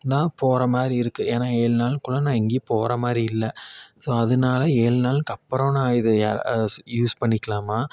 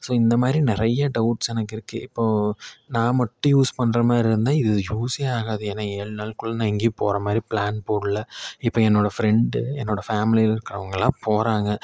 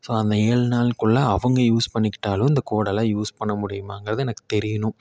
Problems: none marked